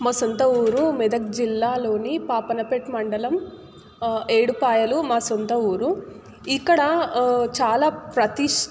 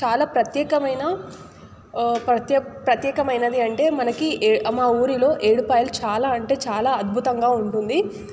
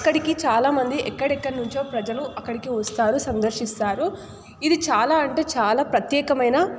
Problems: none marked